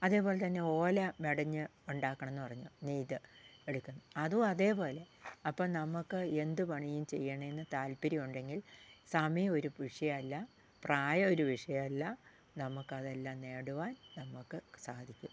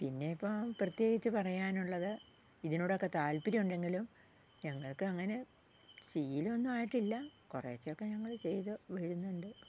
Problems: low volume